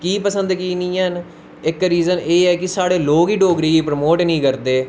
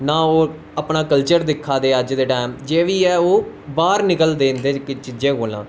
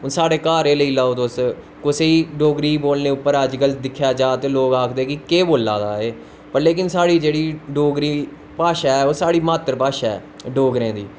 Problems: constant background noise